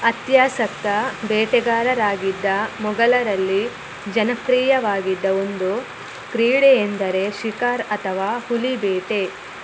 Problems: constant background noise